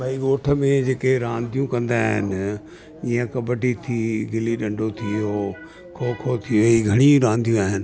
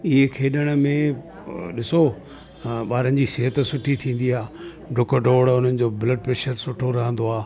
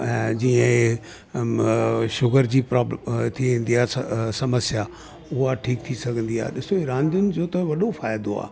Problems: constant background noise